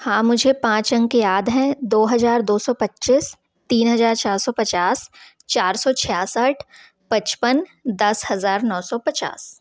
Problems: background sounds at intervals